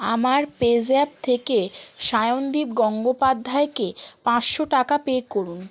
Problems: background sounds at intervals